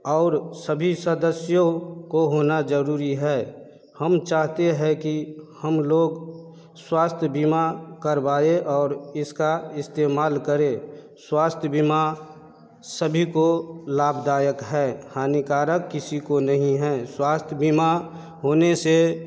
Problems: background conversations at intervals